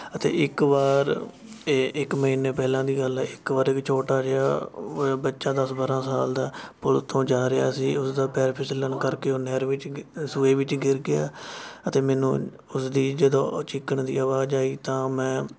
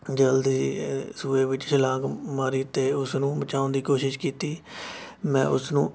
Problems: none marked